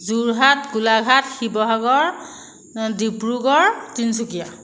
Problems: echo